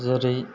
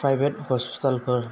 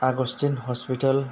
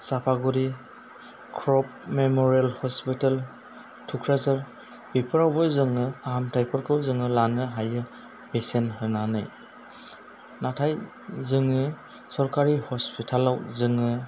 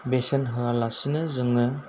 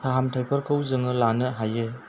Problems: low volume